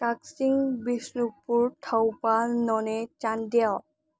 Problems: low volume